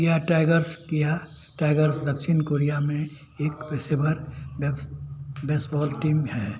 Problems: constant background noise